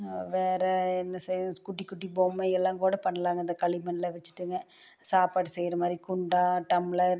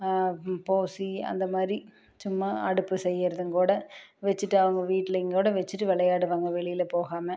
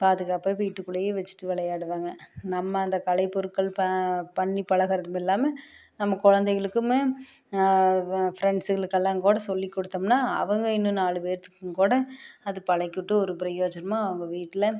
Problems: none marked